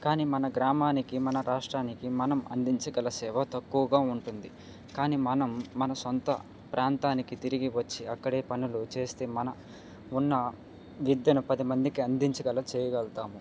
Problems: none marked